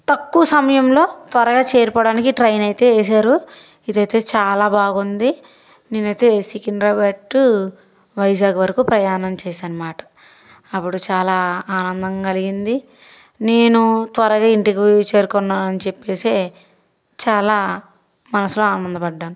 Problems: background sounds at intervals